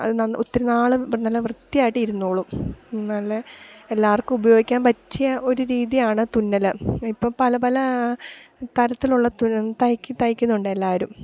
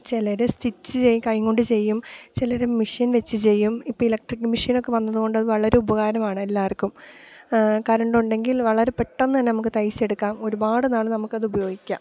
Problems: none marked